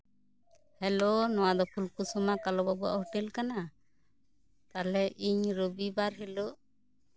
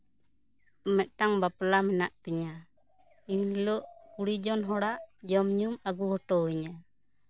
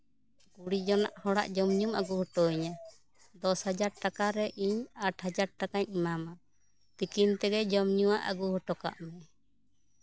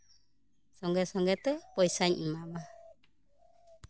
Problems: background sounds at intervals, background conversations at intervals